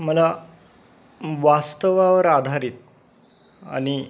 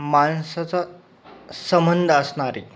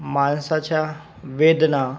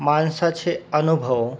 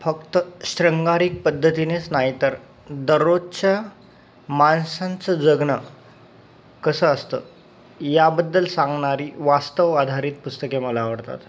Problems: constant background noise